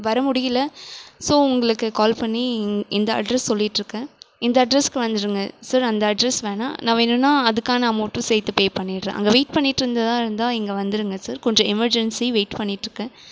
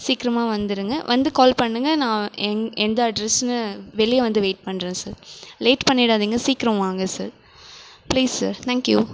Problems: none marked